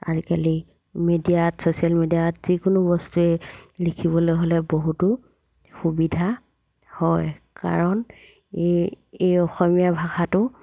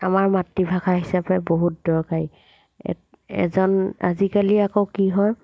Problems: background sounds at intervals